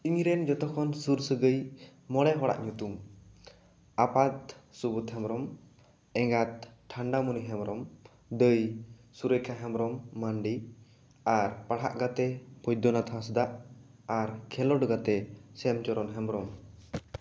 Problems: none marked